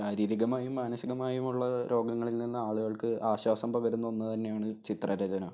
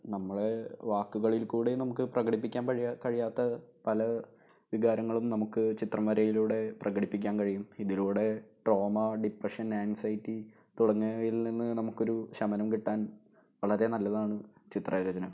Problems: low volume